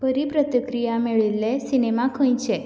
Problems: background sounds at intervals